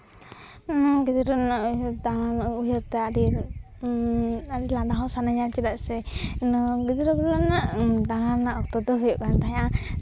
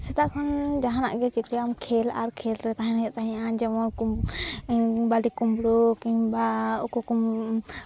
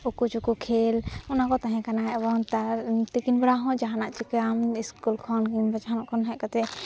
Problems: background sounds at intervals